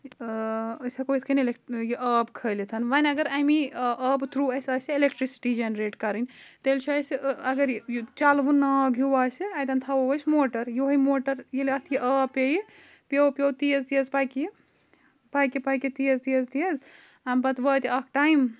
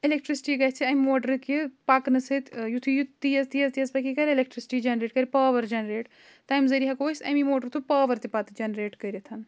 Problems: none marked